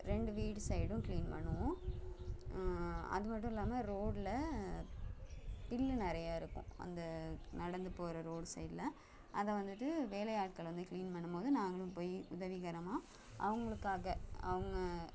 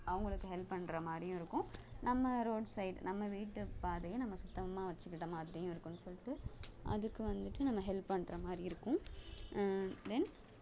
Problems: background sounds at intervals